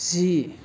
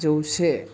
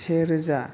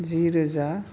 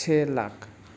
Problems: low volume